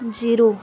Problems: background conversations at intervals